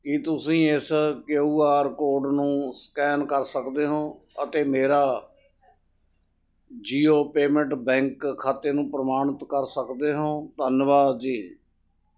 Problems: none marked